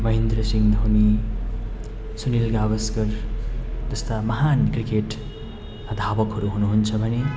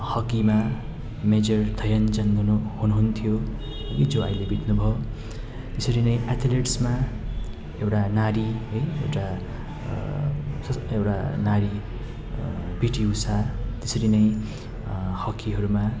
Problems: constant background noise